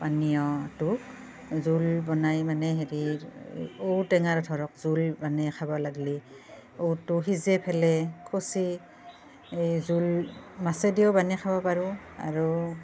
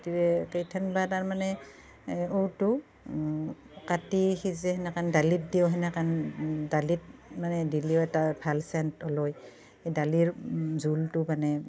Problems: none marked